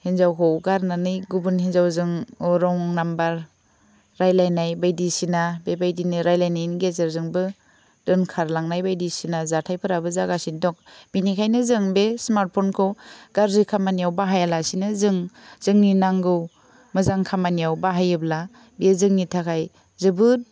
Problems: none marked